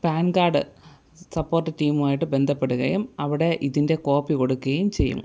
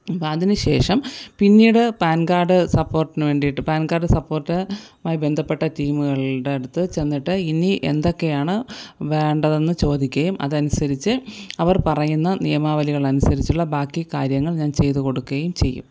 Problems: none marked